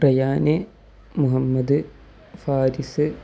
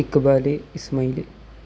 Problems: none marked